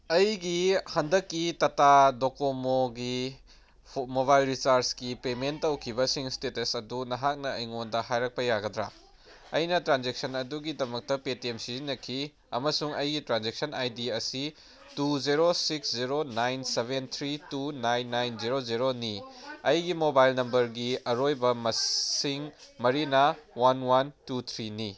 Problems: background sounds at intervals